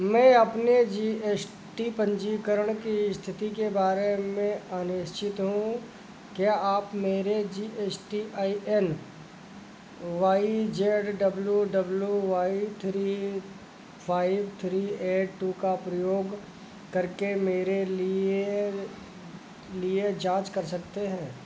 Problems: none marked